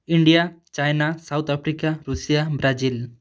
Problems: none marked